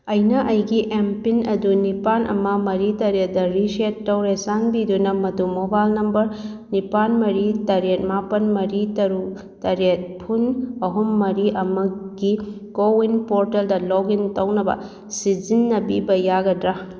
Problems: none marked